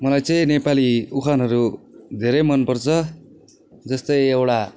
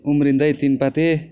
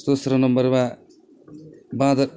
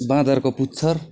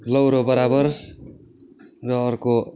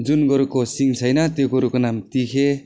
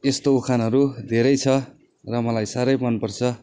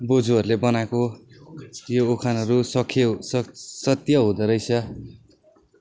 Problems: background conversations at intervals